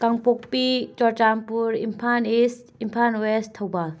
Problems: constant background noise